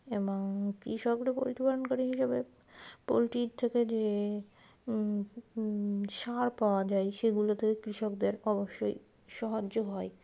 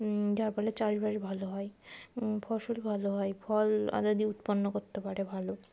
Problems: background sounds at intervals